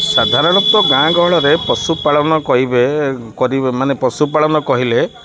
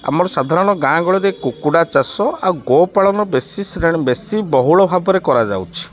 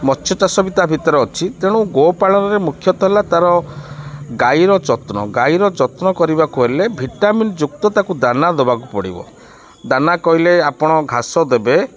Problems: background sounds at intervals